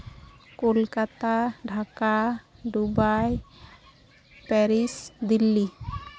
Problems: background sounds at intervals, background conversations at intervals